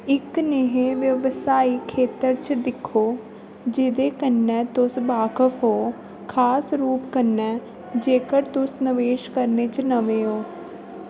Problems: constant background noise